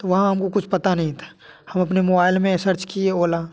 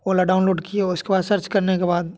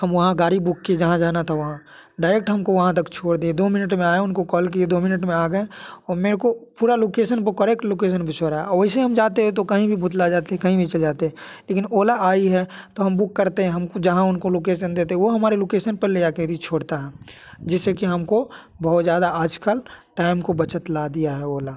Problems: background sounds at intervals